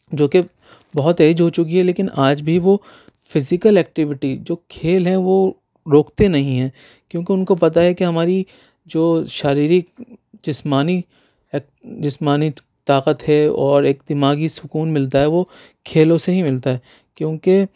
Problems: none marked